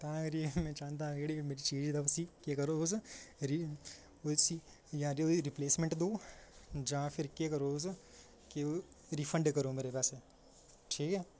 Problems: none marked